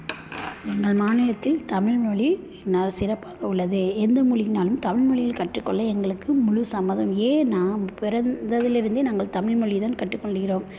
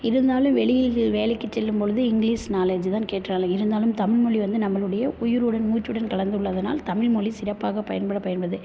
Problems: none marked